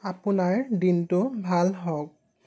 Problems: constant background noise